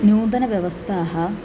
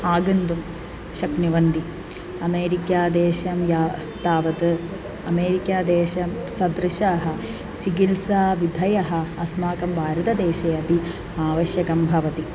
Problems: none marked